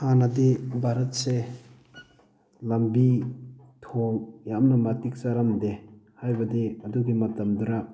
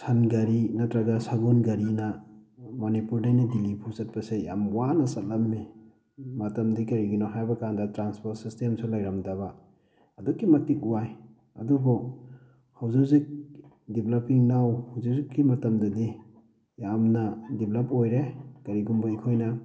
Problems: constant background noise